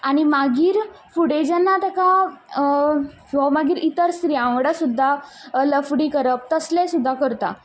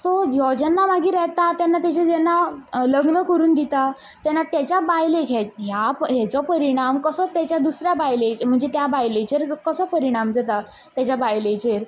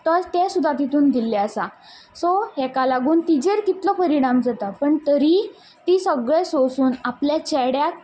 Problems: background sounds at intervals